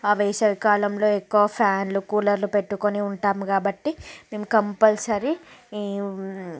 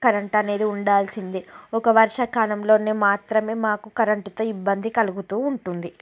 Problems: background sounds at intervals, background conversations at intervals